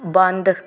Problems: none marked